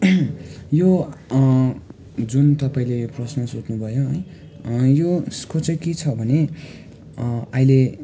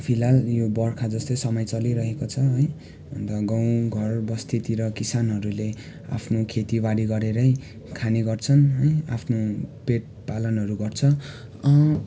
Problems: constant background noise, continuous background conversations